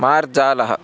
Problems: constant background noise, continuous background conversations